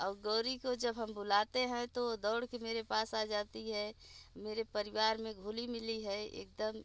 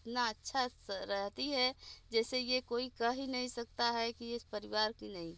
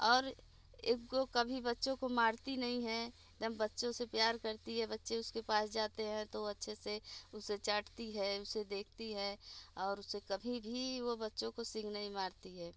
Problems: constant background noise, low volume